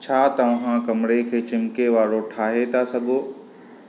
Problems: constant background noise